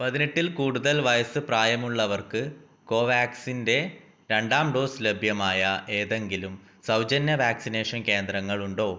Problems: none marked